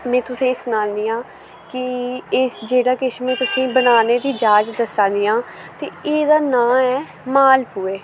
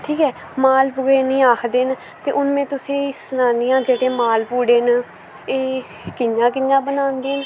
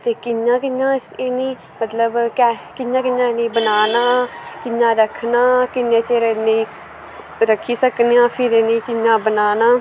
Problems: constant background noise